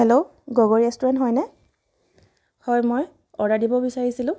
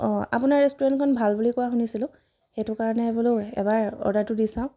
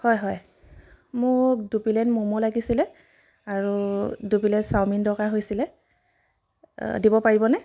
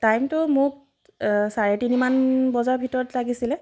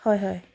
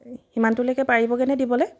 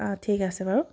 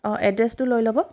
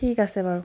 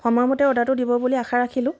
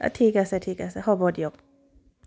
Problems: none marked